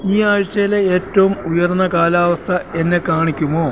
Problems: constant background noise